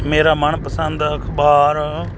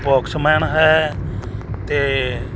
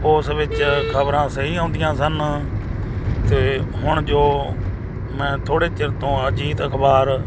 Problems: background sounds at intervals